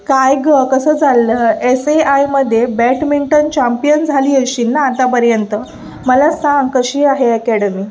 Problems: constant background noise, background conversations at intervals